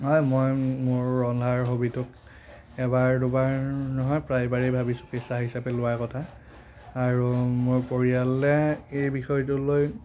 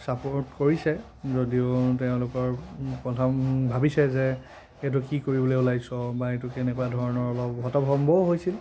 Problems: constant background noise